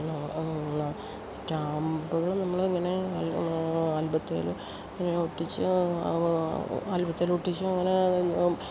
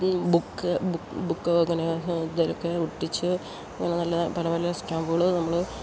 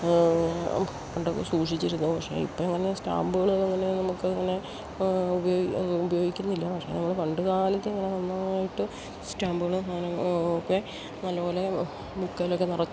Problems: constant background noise